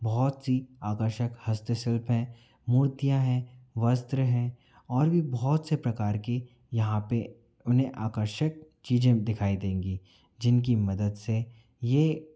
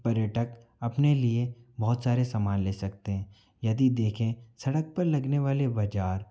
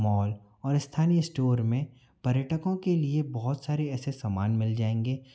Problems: none marked